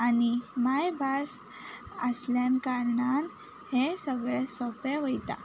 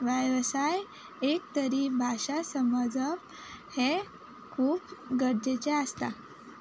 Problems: constant background noise